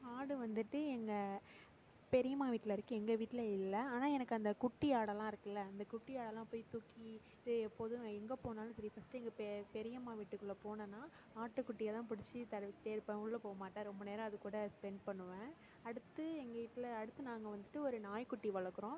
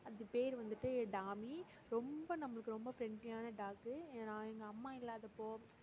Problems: low volume